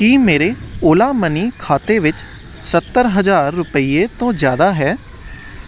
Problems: constant background noise